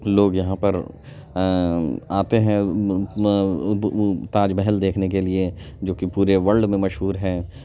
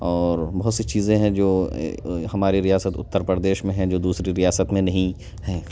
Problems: background conversations at intervals